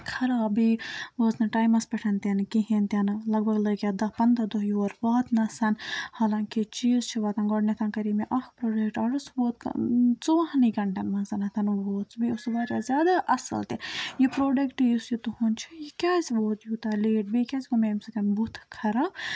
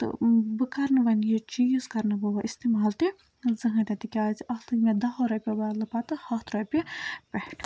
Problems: none marked